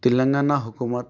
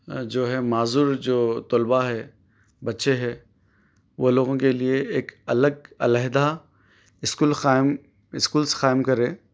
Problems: background sounds at intervals